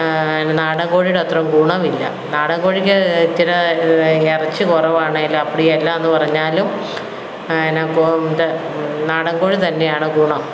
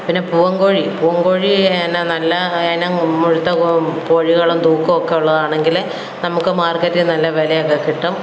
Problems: background sounds at intervals